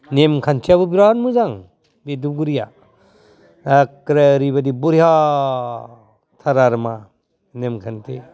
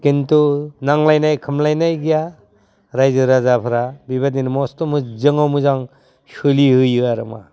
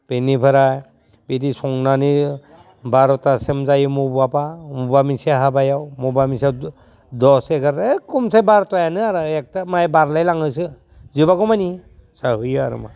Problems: constant background noise